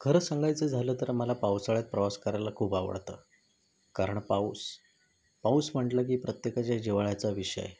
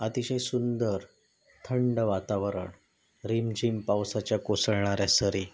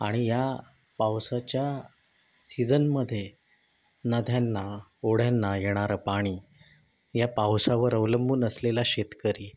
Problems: none marked